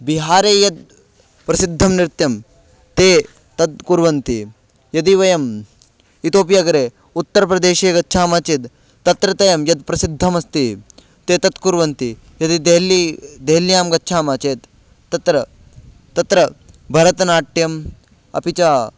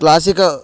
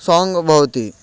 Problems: none marked